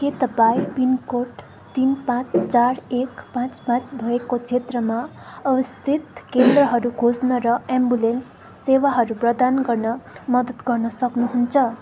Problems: constant background noise